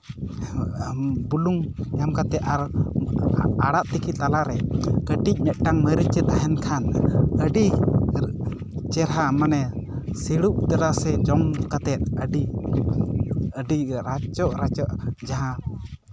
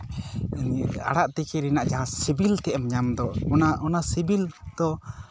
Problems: none marked